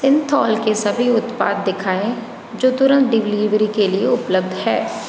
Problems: constant background noise, background conversations at intervals